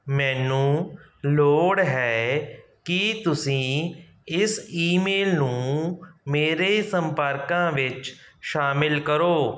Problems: none marked